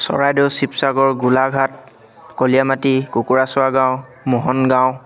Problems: constant background noise, background conversations at intervals